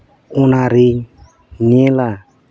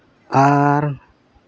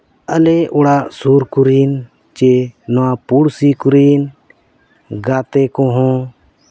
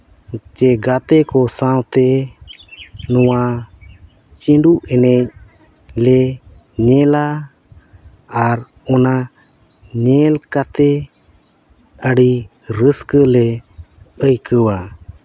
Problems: background sounds at intervals, background conversations at intervals